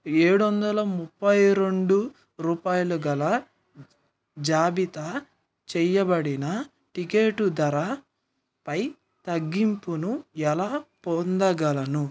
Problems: background sounds at intervals